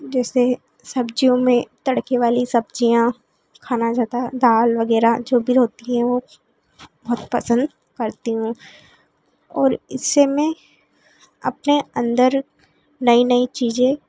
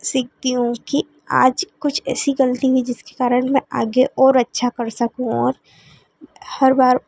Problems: constant background noise